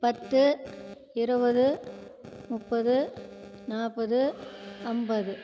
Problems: constant background noise